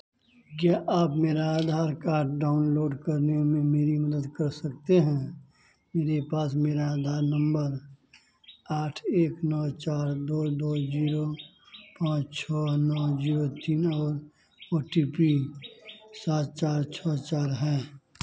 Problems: constant background noise